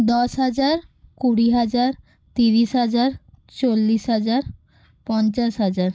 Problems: none marked